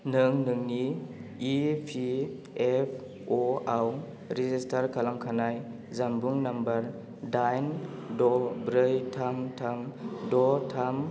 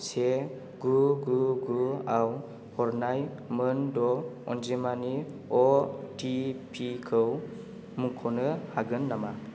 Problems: constant background noise